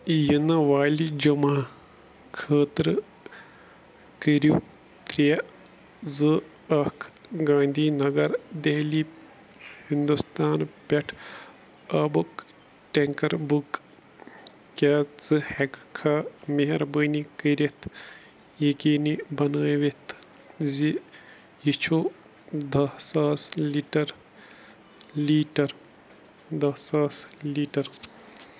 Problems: none marked